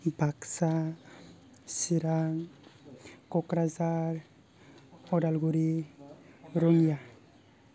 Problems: low volume